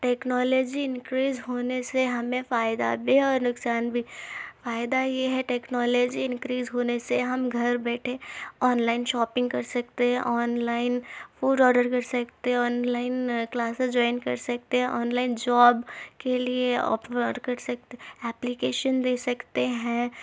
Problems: none marked